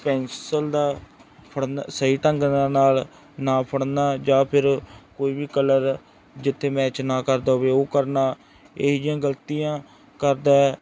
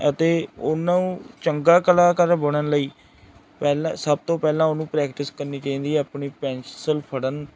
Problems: background sounds at intervals